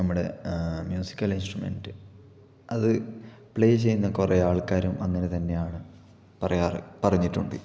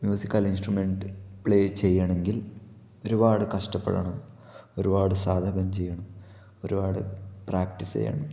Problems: low volume